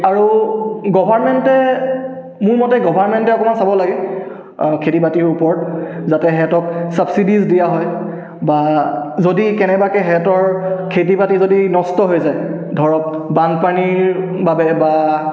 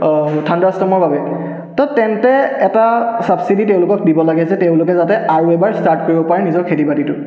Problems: continuous background conversations, echo